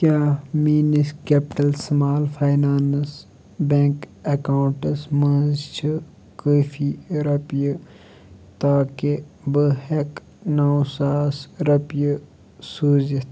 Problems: constant background noise